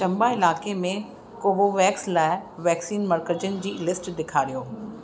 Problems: constant background noise